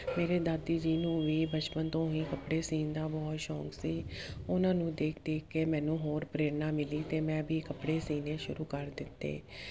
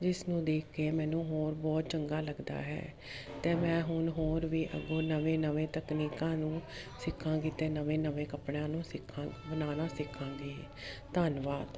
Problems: constant background noise